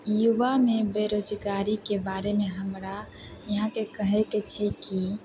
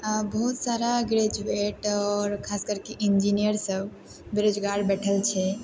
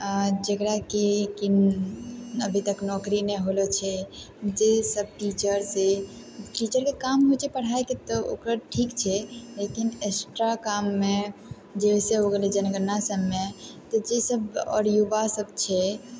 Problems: constant background noise